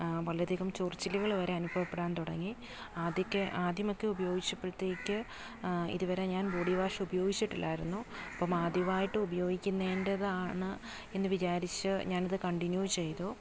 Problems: constant background noise